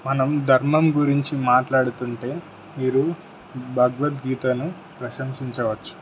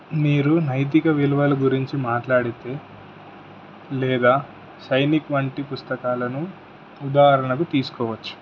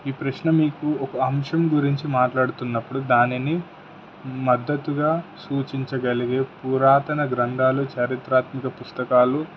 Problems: constant background noise